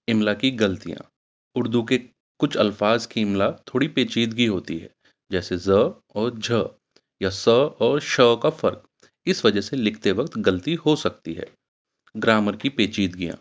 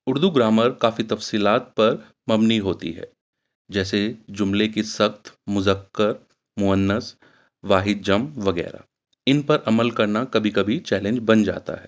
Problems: none marked